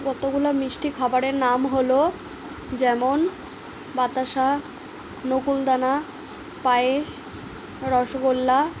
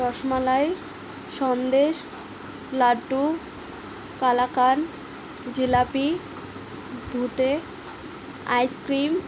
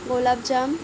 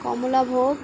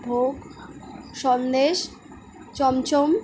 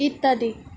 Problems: constant background noise